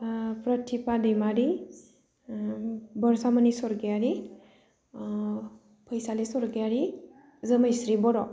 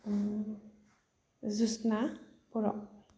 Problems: constant background noise